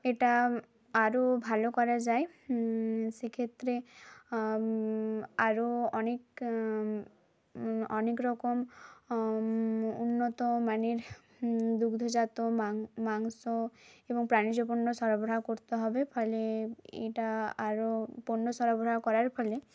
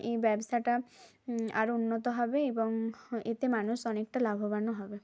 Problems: none marked